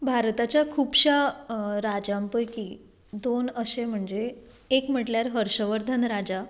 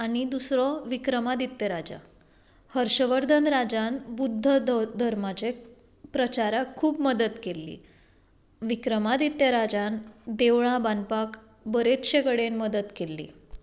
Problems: background sounds at intervals